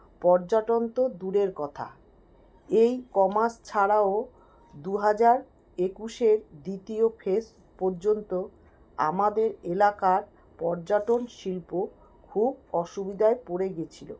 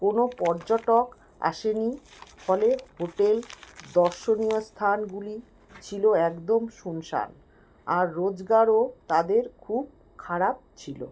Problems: constant background noise